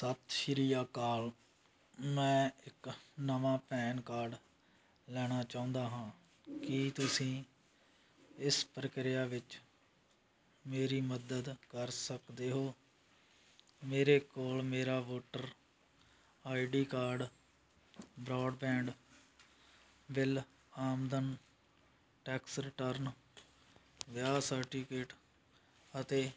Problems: background sounds at intervals